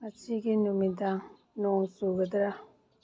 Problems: none marked